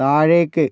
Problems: none marked